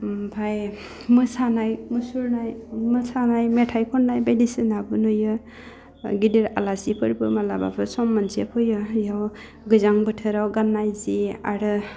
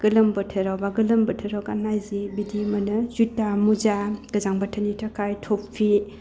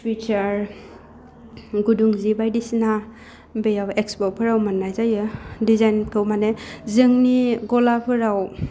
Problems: low volume